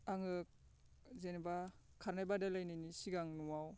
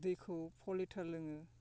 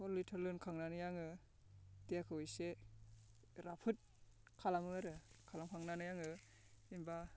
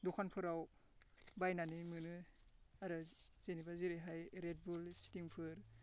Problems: constant background noise